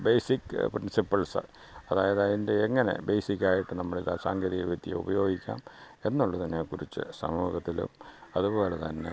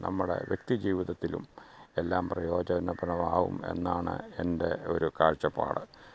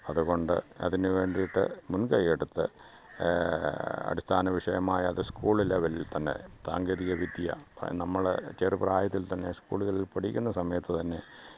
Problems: background sounds at intervals, low volume